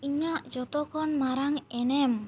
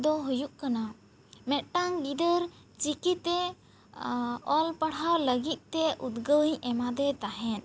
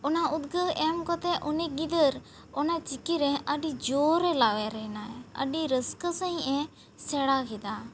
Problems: none marked